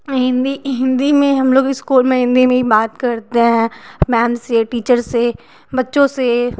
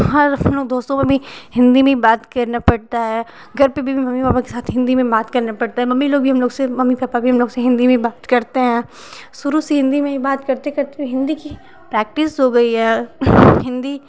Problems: constant background noise